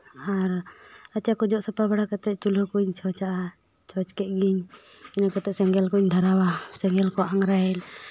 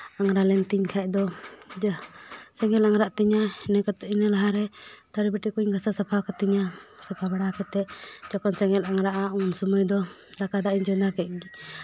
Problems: background sounds at intervals